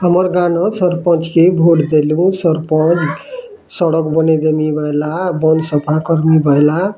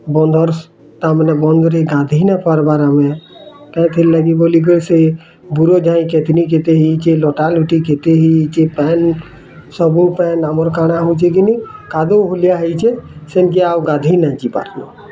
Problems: constant background noise, continuous background conversations